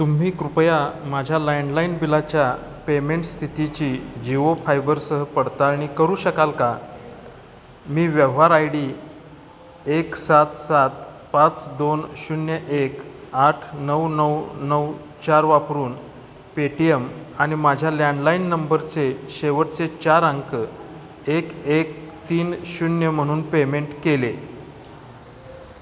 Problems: constant background noise, background conversations at intervals, echo